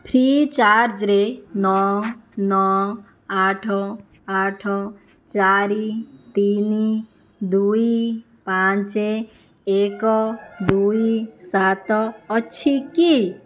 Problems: constant background noise